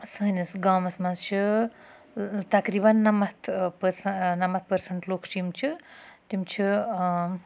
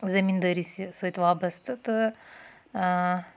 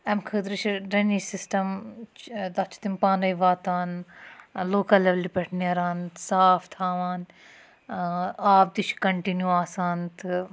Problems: none marked